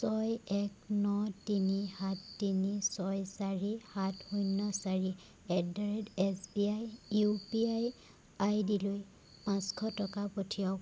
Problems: constant background noise